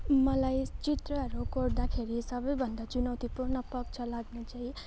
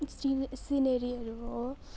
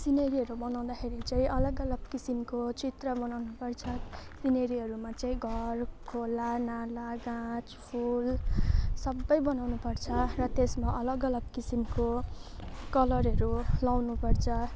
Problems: none marked